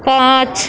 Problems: constant background noise, continuous background conversations